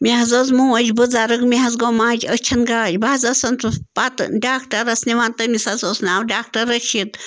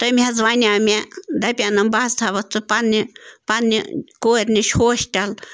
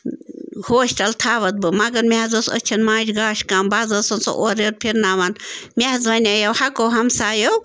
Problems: constant background noise